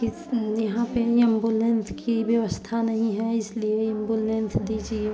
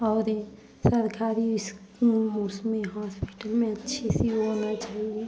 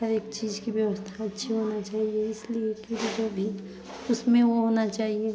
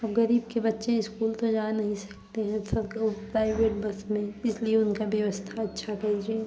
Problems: continuous background conversations